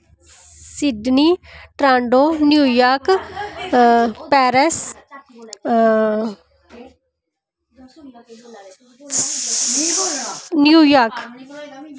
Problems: constant background noise